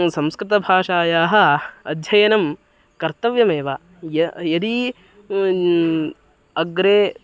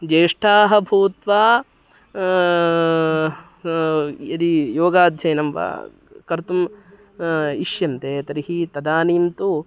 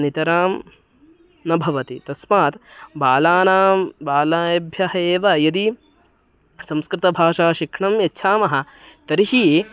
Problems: background sounds at intervals, background conversations at intervals